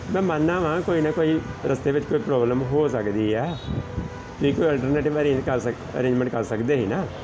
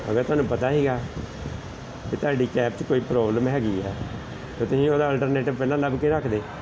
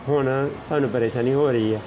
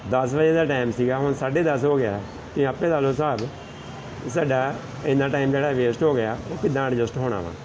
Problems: none marked